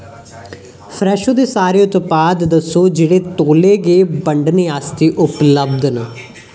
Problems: none marked